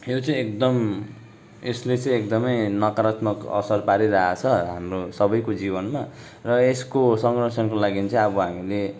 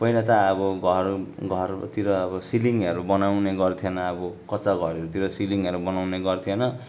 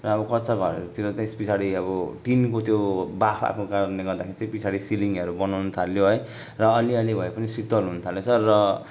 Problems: none marked